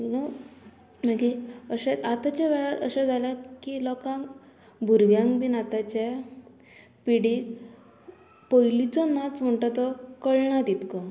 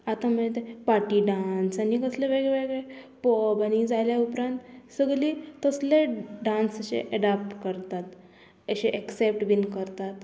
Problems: none marked